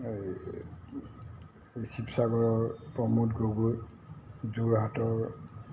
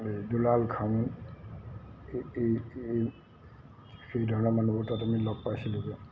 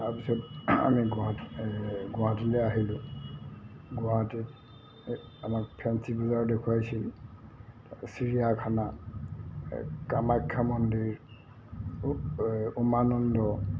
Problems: constant background noise, low volume